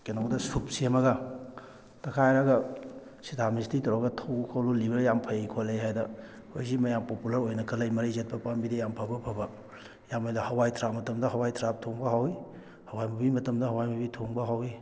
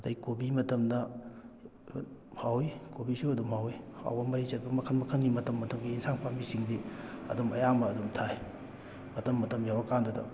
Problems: background sounds at intervals